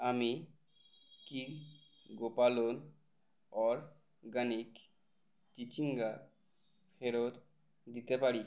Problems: none marked